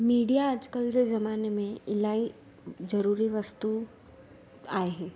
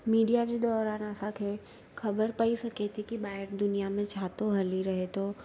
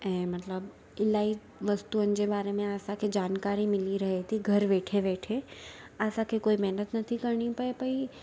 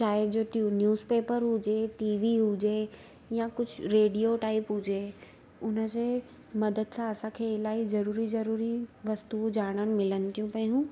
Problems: constant background noise